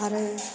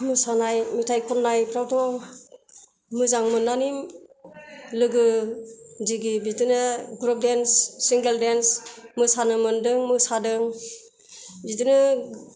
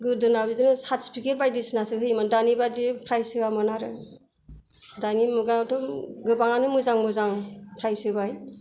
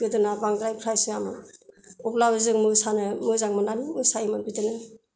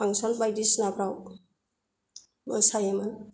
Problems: none marked